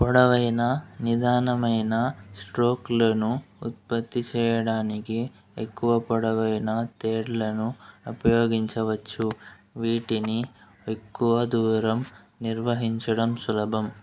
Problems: background sounds at intervals